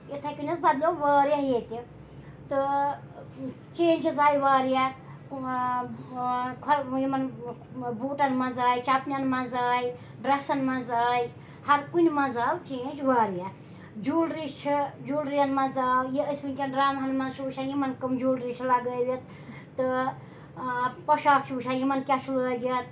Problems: background sounds at intervals, background conversations at intervals